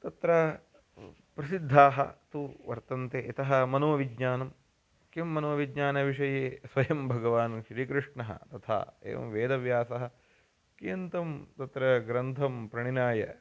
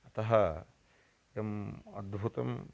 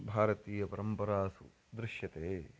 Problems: constant background noise